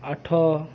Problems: constant background noise